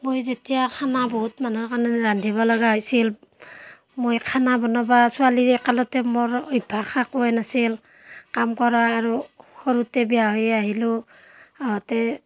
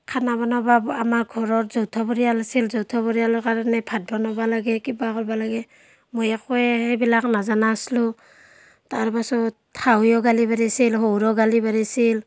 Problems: constant background noise, background conversations at intervals